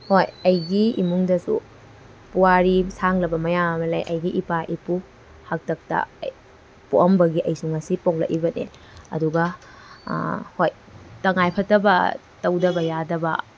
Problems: none marked